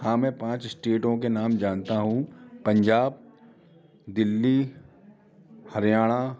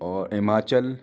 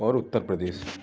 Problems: none marked